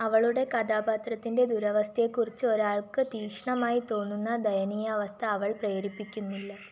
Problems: background sounds at intervals, low volume